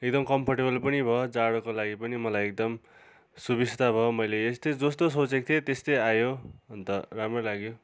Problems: constant background noise